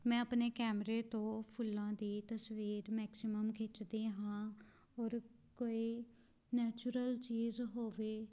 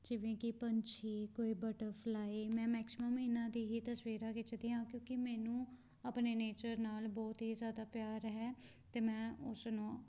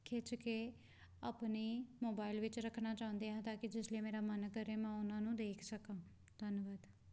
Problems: background sounds at intervals